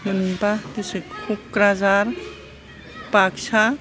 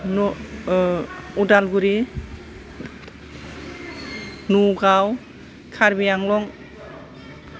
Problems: background sounds at intervals